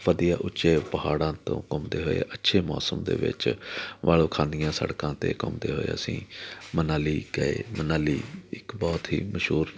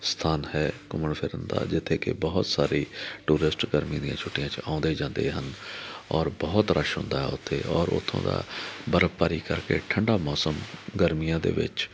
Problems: background conversations at intervals